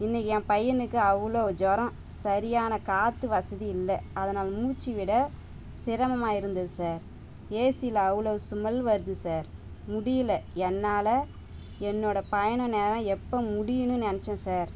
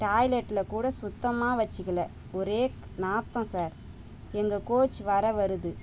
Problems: constant background noise